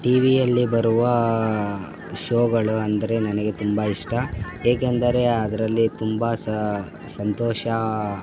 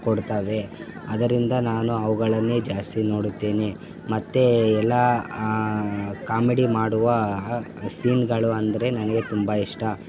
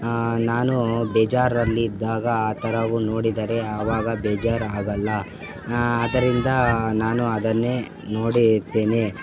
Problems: constant background noise, background conversations at intervals